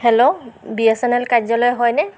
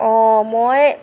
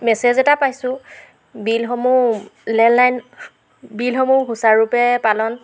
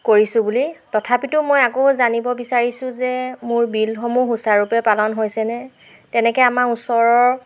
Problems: none marked